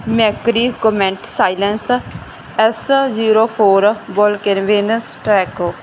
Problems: background sounds at intervals